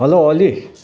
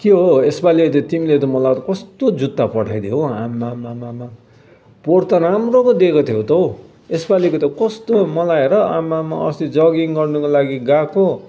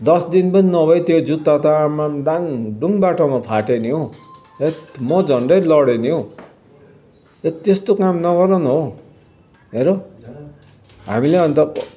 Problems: background sounds at intervals